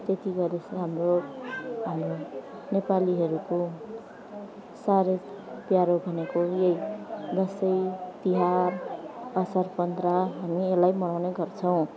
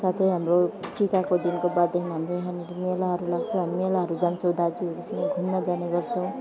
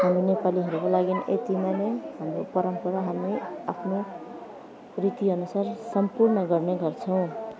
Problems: constant background noise, background conversations at intervals, low volume